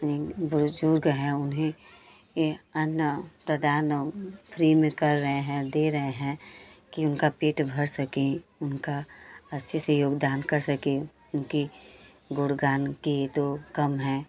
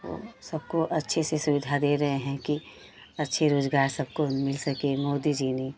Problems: none marked